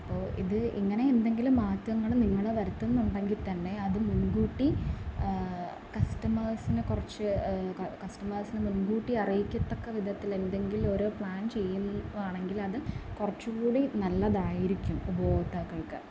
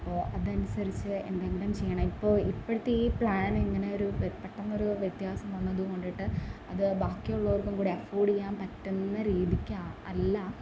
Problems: constant background noise